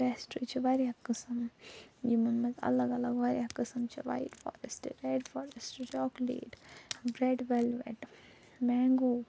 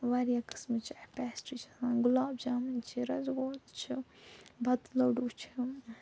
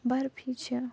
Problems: low volume